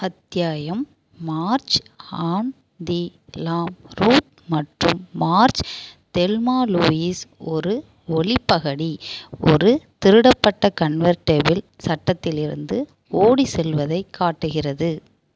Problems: none marked